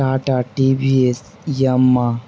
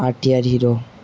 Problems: none marked